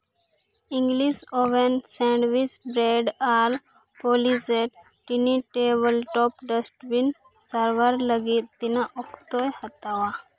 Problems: none marked